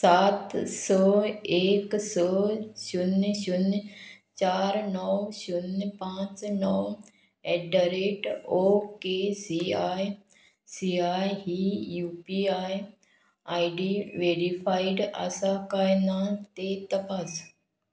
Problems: background sounds at intervals